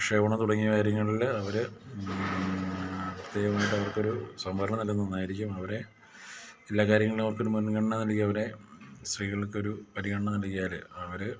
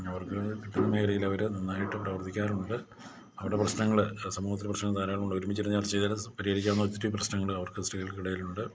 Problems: low volume